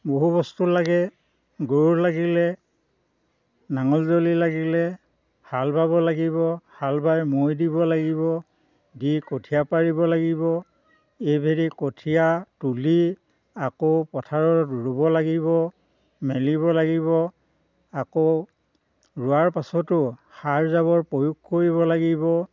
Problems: constant background noise